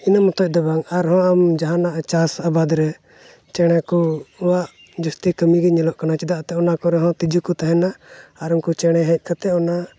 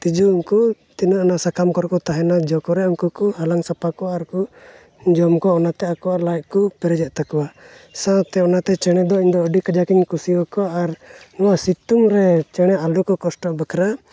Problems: background sounds at intervals